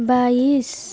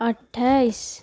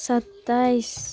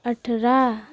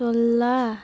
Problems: background sounds at intervals, low volume